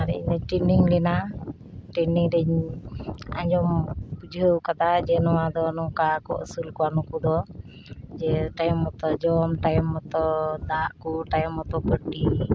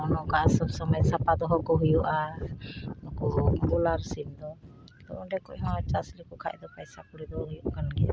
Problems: none marked